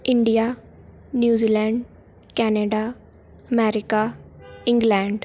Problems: none marked